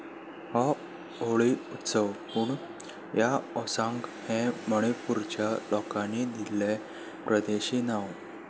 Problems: none marked